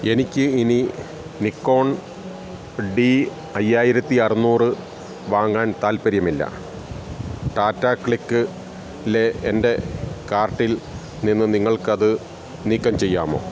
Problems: background sounds at intervals